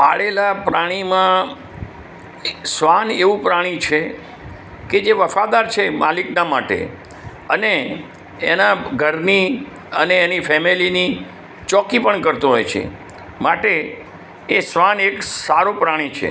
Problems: background sounds at intervals